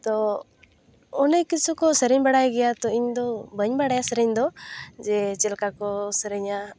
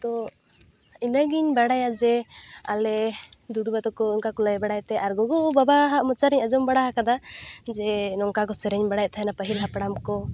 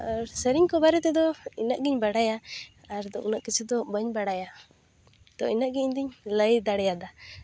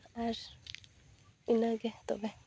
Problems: constant background noise